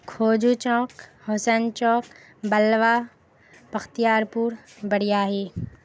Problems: constant background noise